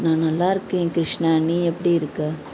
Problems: constant background noise